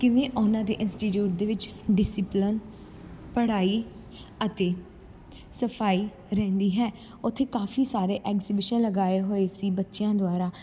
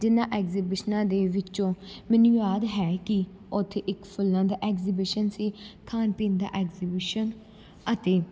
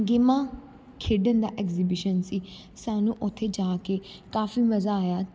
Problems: none marked